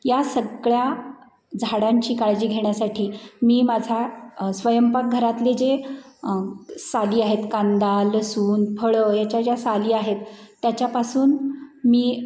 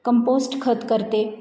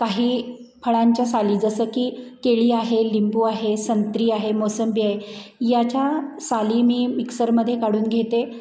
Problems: constant background noise, background conversations at intervals